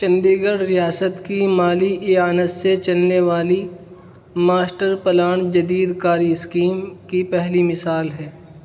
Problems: constant background noise